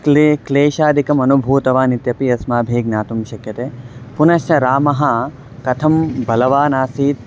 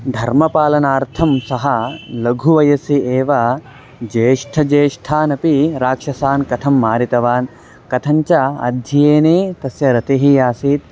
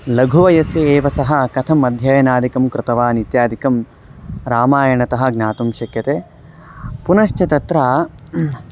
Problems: constant background noise, background conversations at intervals